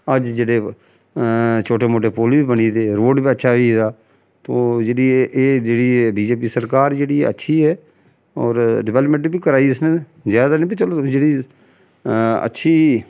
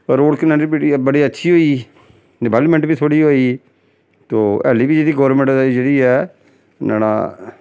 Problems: background sounds at intervals